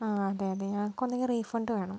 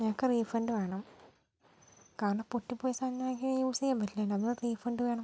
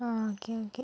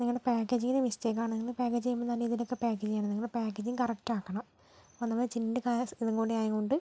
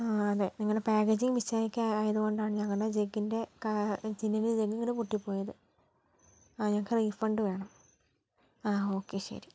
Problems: low volume